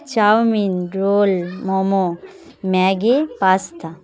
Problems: none marked